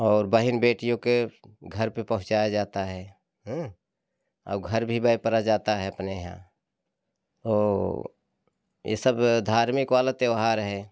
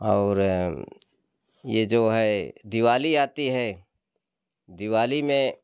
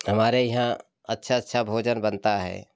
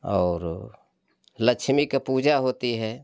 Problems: constant background noise